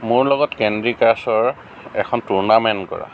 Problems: constant background noise, low volume